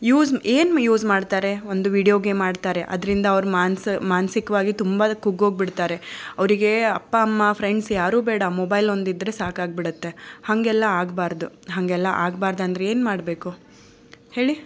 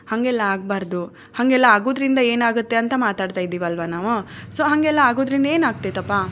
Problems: none marked